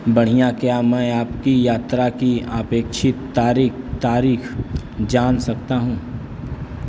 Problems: none marked